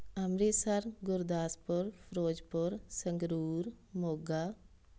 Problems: none marked